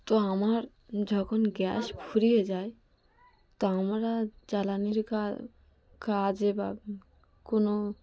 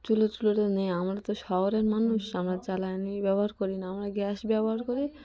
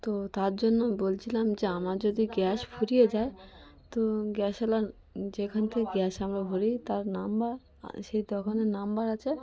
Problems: continuous background conversations